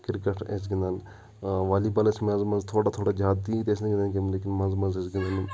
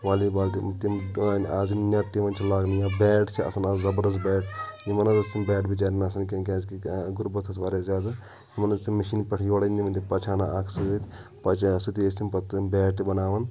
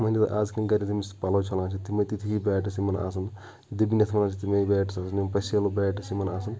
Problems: background conversations at intervals